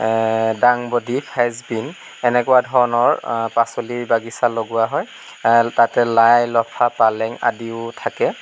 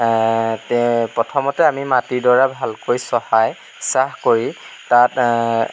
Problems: none marked